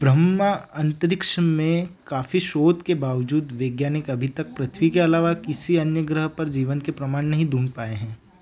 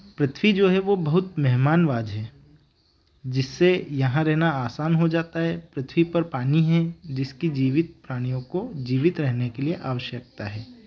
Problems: background sounds at intervals